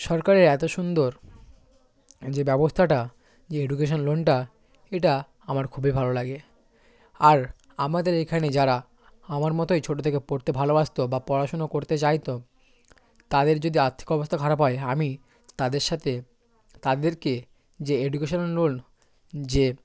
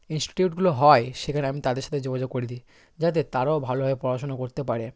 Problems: constant background noise